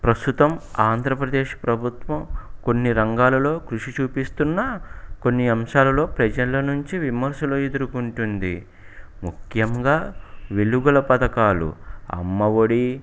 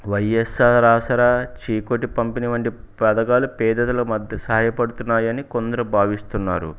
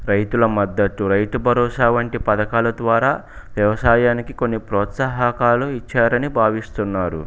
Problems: background sounds at intervals